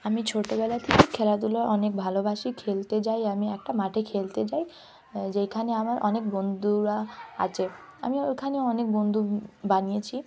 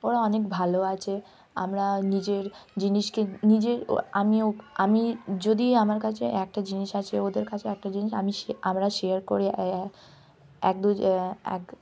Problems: constant background noise, continuous background conversations